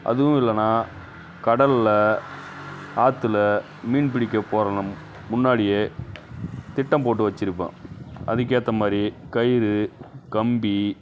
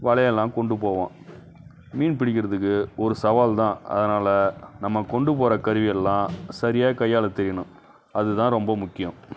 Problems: background sounds at intervals